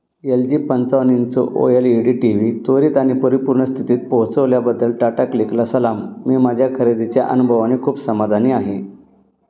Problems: background sounds at intervals